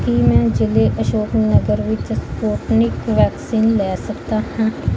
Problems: constant background noise